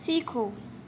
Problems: constant background noise